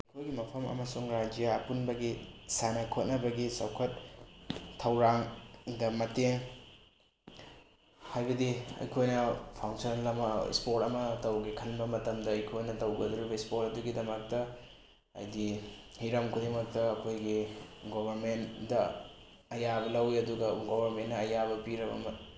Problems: background sounds at intervals, low volume